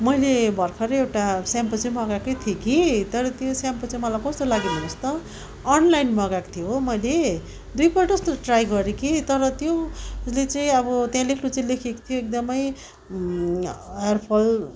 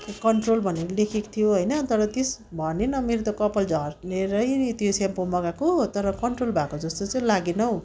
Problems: constant background noise